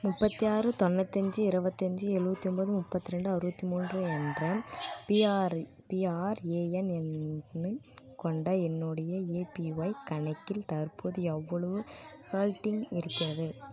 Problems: none marked